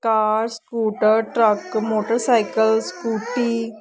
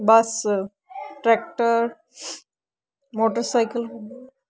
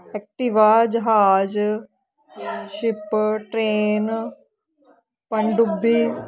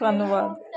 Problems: constant background noise, continuous background conversations